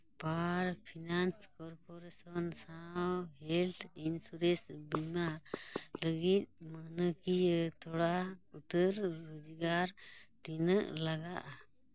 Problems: background sounds at intervals, low volume